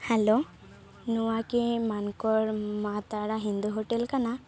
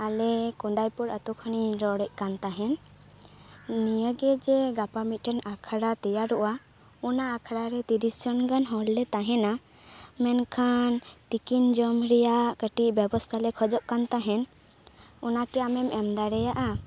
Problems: constant background noise